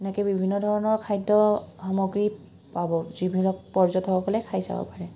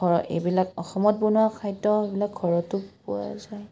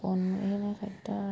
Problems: background sounds at intervals